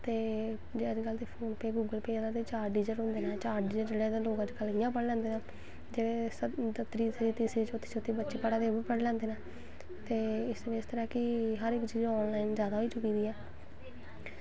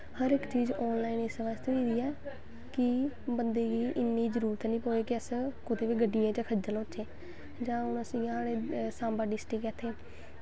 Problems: constant background noise